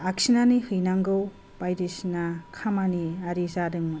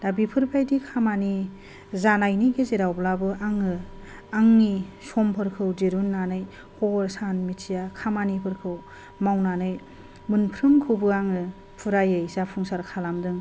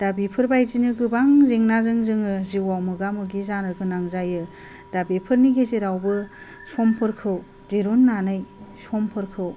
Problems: low volume